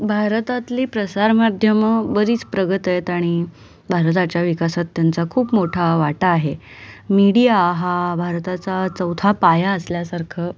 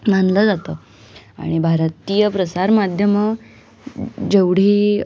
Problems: none marked